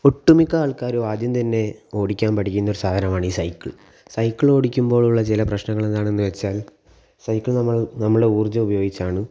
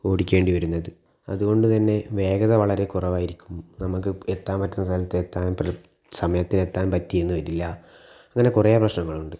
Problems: background sounds at intervals